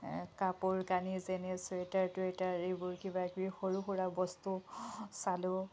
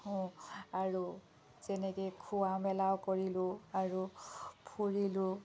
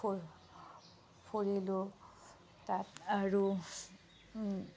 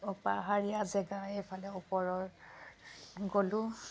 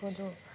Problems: background sounds at intervals